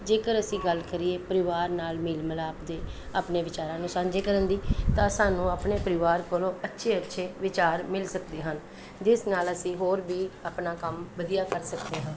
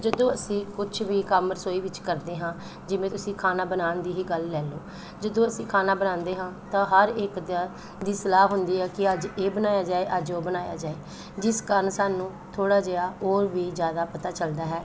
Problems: constant background noise